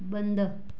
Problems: none marked